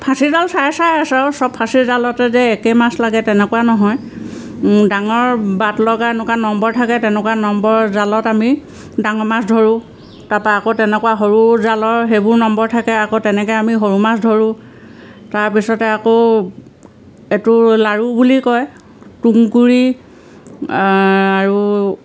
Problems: none marked